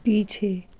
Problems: constant background noise